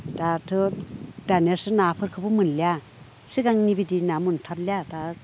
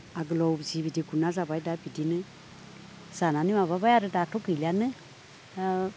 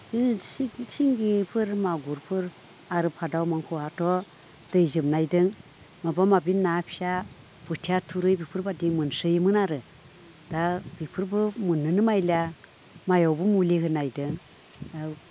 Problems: background conversations at intervals